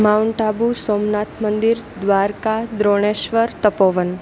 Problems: constant background noise